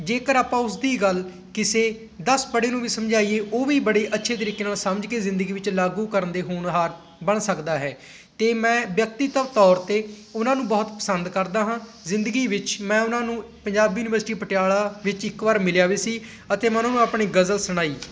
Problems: constant background noise